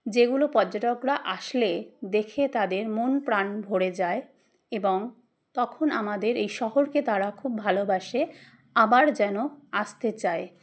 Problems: none marked